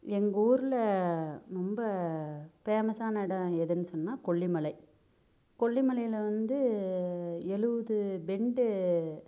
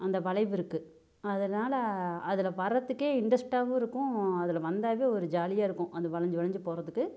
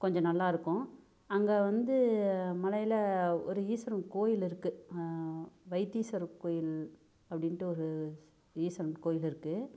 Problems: none marked